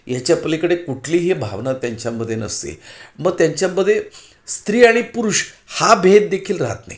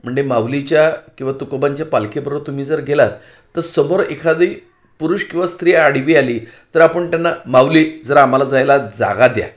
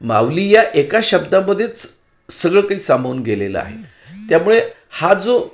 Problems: background sounds at intervals